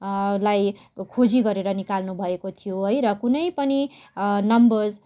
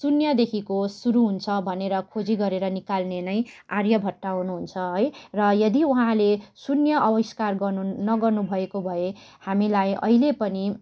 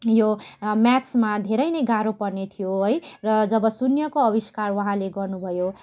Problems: background sounds at intervals